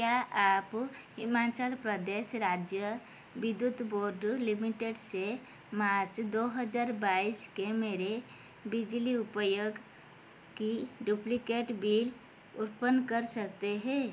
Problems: constant background noise